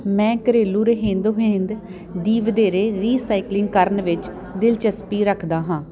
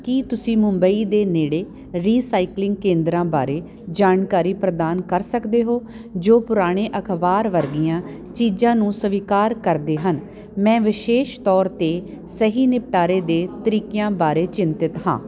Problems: constant background noise